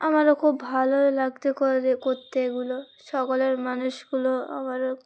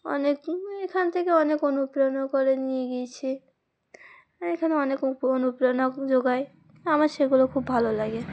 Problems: constant background noise, background conversations at intervals